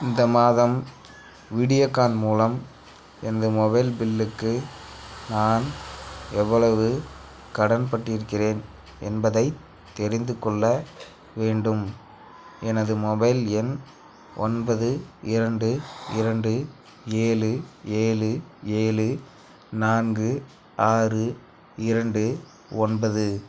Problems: constant background noise